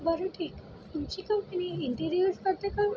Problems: constant background noise, background conversations at intervals